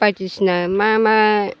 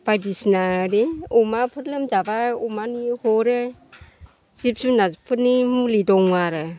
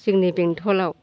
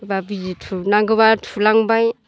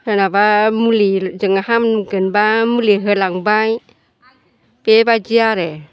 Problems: constant background noise